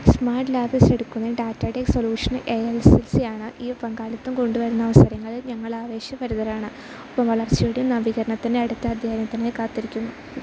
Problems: constant background noise